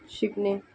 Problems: background sounds at intervals